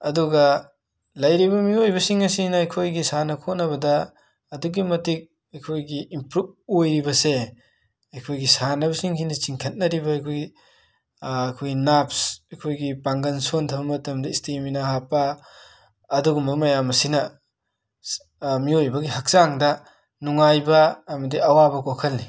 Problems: none marked